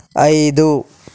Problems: none marked